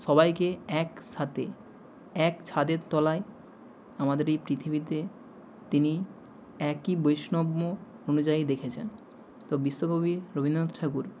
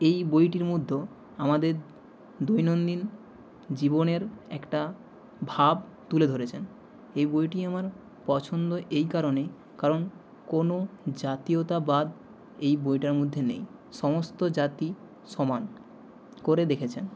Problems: none marked